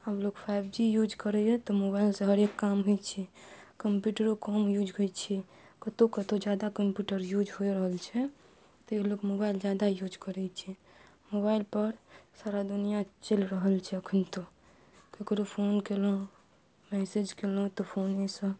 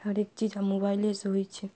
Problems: none marked